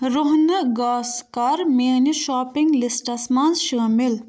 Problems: none marked